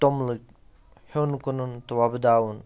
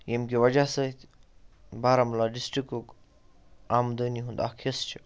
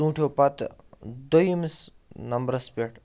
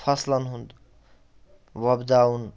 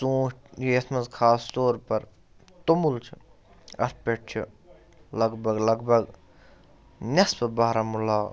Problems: background sounds at intervals